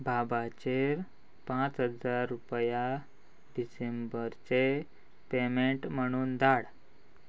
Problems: constant background noise